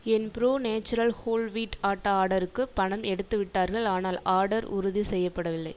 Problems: none marked